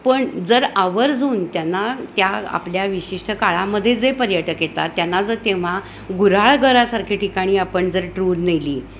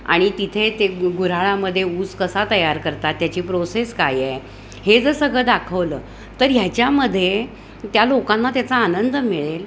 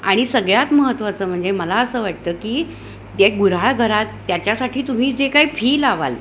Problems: constant background noise, continuous background conversations